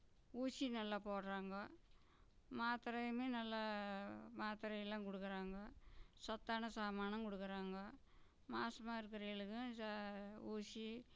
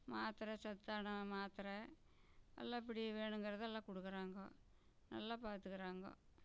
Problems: low volume